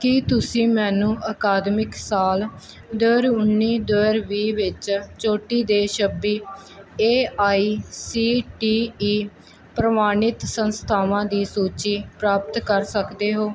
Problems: constant background noise